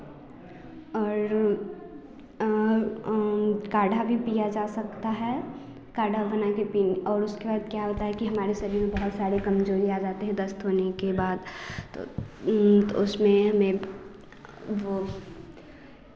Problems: constant background noise